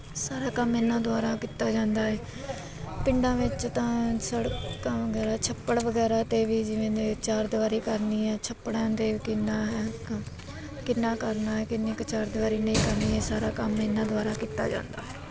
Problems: constant background noise, background conversations at intervals